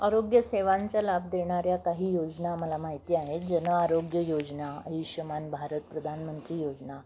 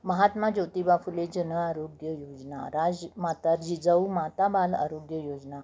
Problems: none marked